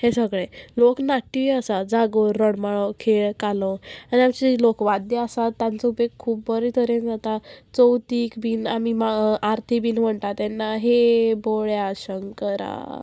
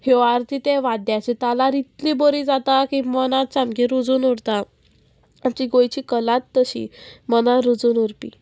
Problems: constant background noise, background conversations at intervals